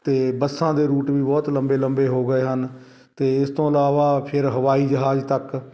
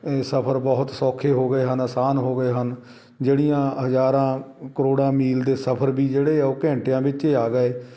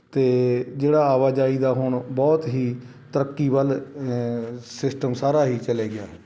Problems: none marked